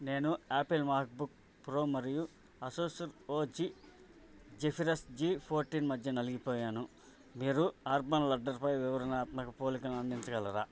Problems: constant background noise